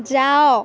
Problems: continuous background conversations